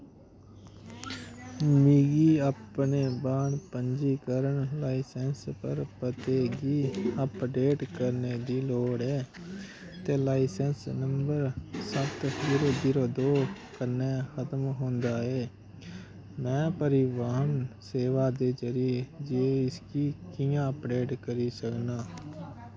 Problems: constant background noise